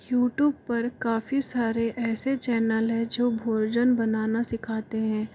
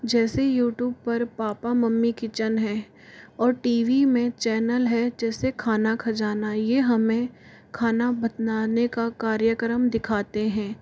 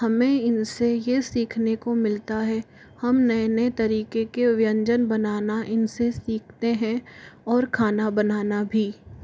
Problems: constant background noise